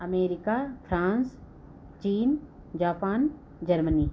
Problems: none marked